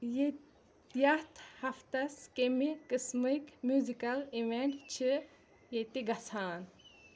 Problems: none marked